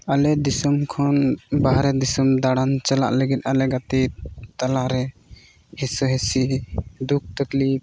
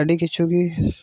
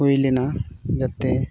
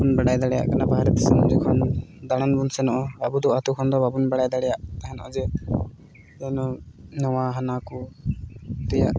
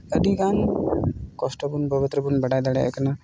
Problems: none marked